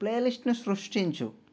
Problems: none marked